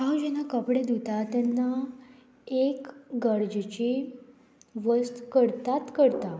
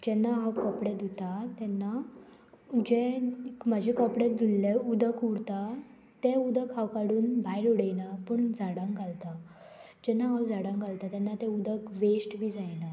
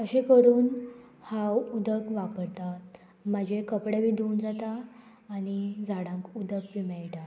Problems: constant background noise